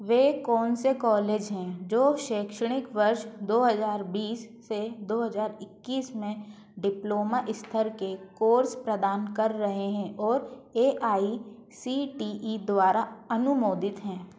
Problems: constant background noise